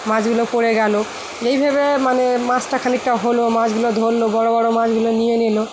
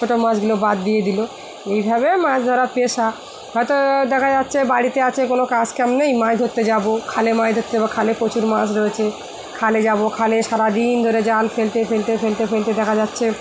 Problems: constant background noise